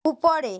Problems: none marked